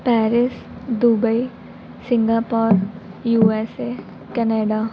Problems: constant background noise